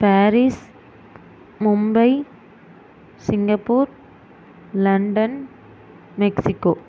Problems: constant background noise